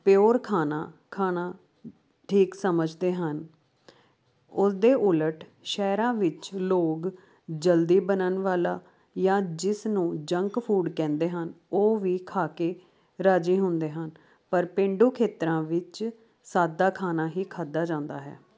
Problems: constant background noise